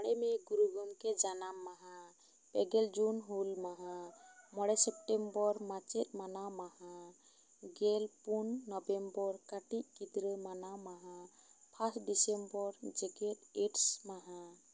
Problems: none marked